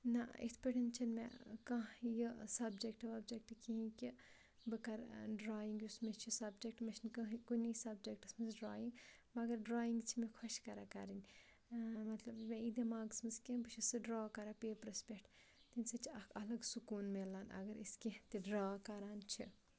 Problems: background sounds at intervals